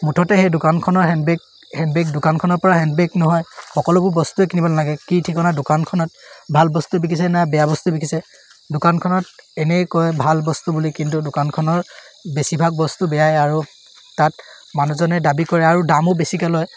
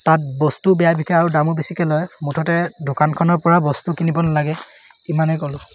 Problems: none marked